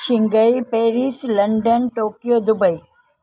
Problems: none marked